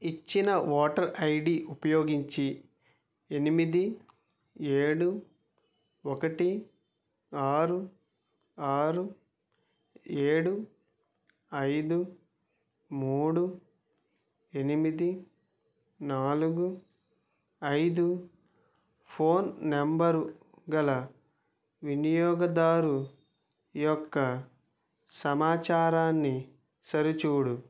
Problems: none marked